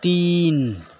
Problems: constant background noise